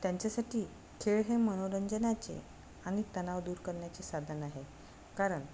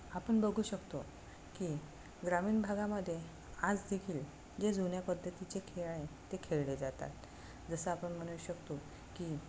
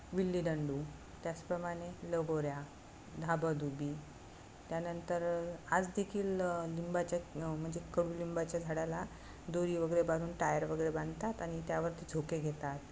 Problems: none marked